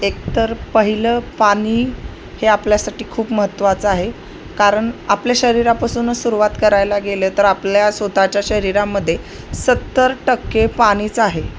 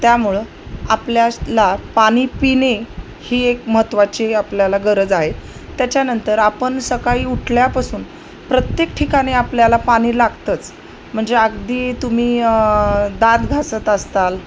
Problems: constant background noise